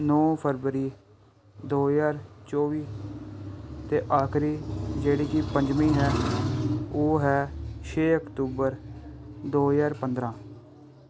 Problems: background sounds at intervals